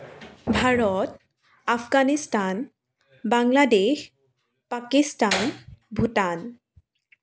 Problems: background sounds at intervals